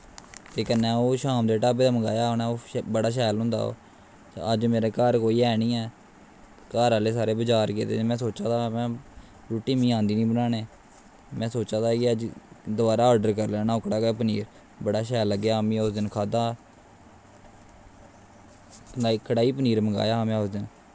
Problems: constant background noise